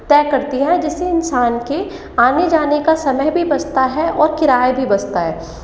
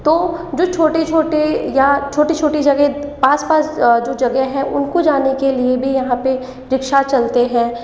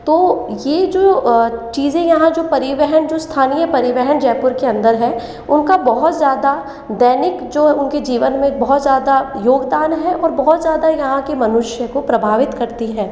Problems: echo